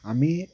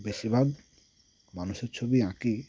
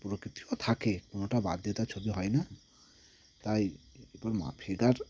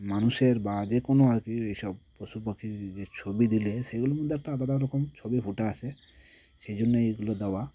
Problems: none marked